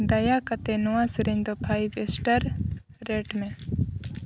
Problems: constant background noise